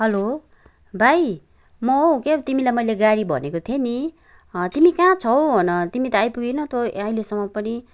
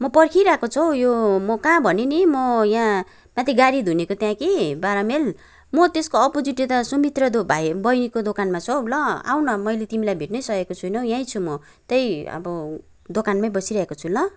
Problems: background sounds at intervals